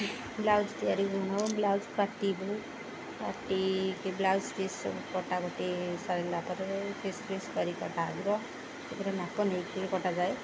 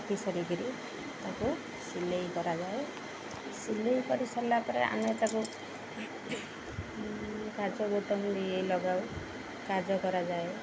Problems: constant background noise